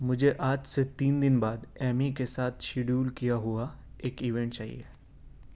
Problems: none marked